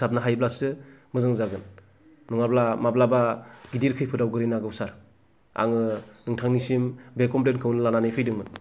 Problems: none marked